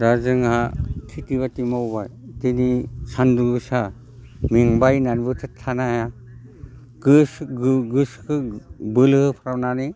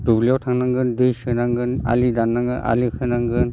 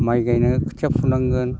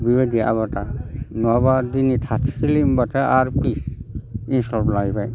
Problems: none marked